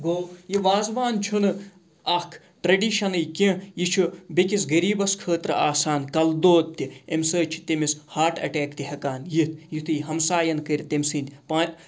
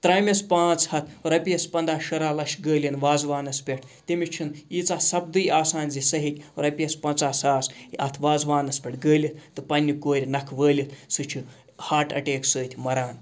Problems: background sounds at intervals